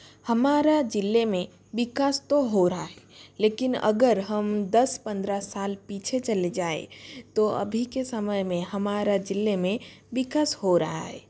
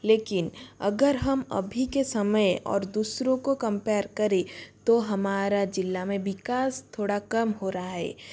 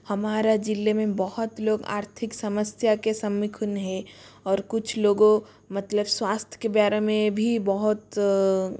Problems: constant background noise